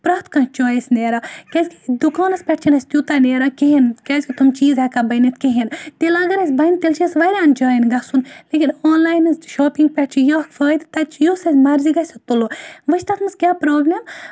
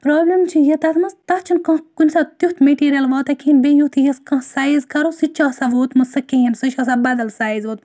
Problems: constant background noise